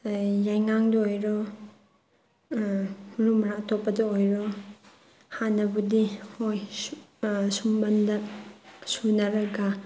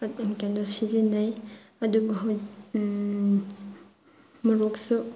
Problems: none marked